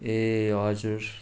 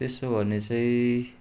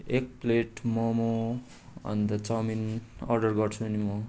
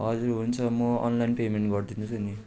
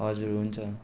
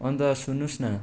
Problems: background sounds at intervals